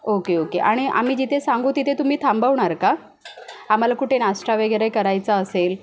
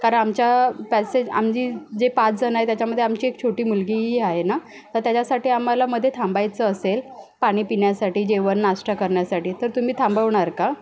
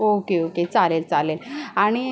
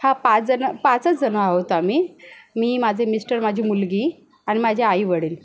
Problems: none marked